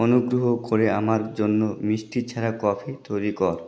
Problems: none marked